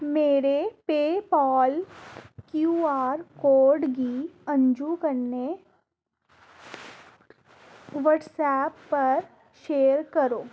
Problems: constant background noise